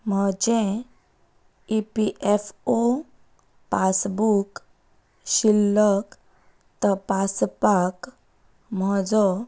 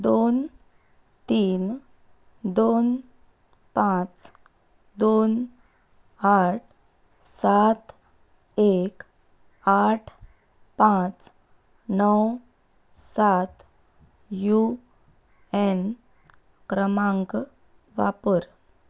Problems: constant background noise